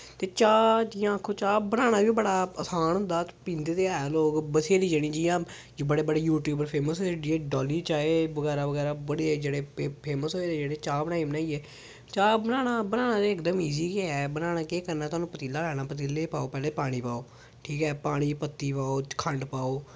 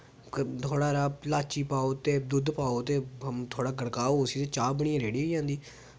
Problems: background sounds at intervals